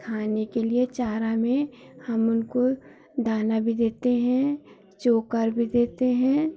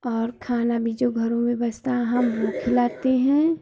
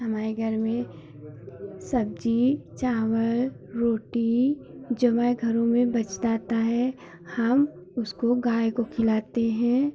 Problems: none marked